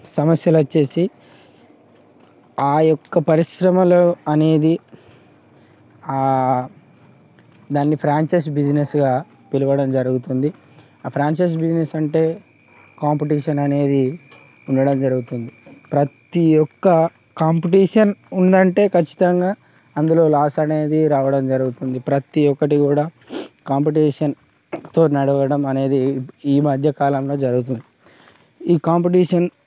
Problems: constant background noise, background conversations at intervals